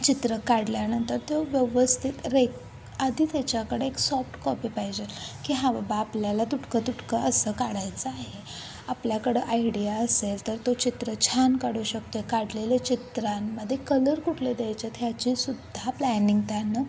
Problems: constant background noise, continuous background conversations